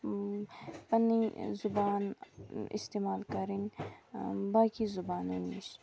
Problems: constant background noise